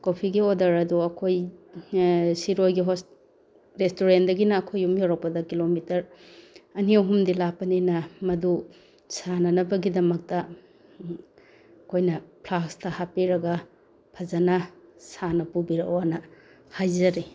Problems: none marked